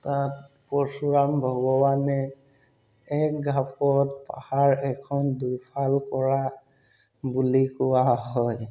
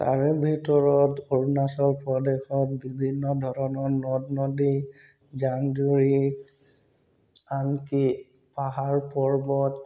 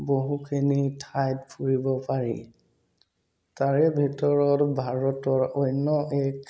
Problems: background sounds at intervals